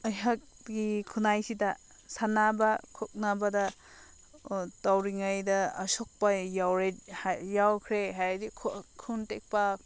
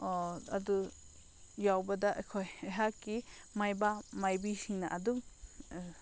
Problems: none marked